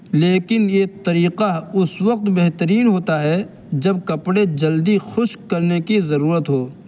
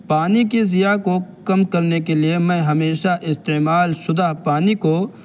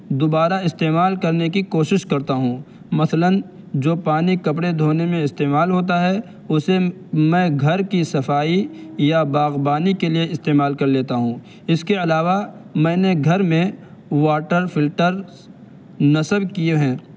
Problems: constant background noise